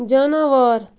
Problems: none marked